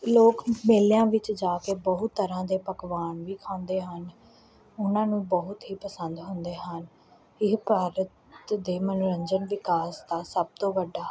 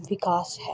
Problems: none marked